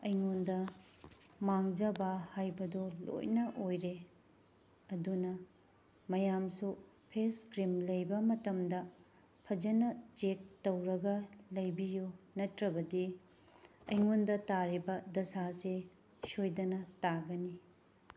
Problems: background sounds at intervals